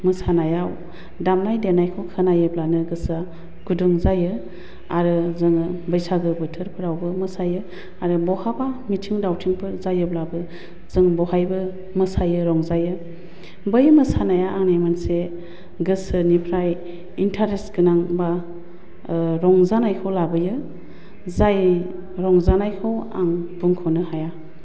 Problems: none marked